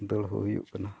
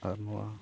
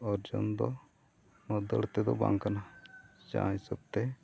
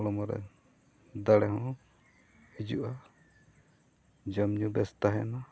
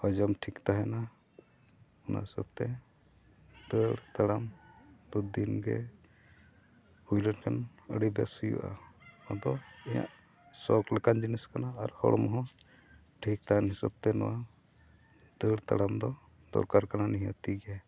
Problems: background sounds at intervals